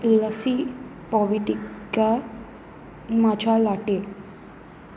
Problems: none marked